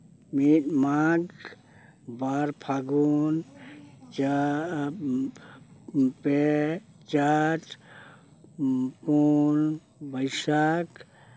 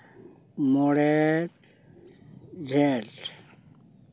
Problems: background sounds at intervals, background conversations at intervals